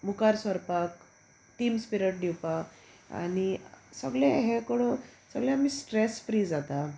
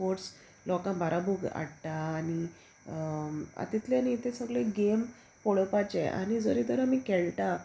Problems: constant background noise